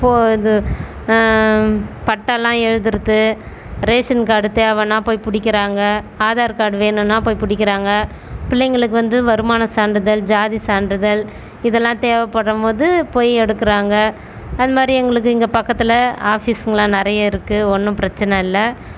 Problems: none marked